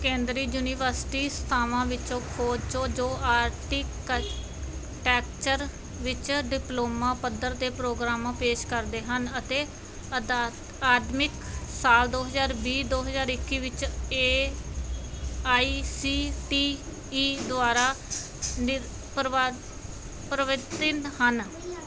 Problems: none marked